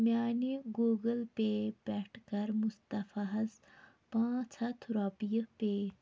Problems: none marked